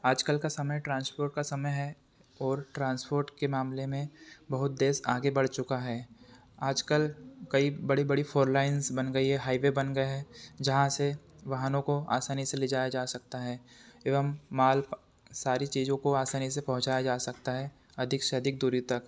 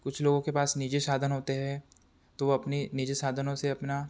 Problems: none marked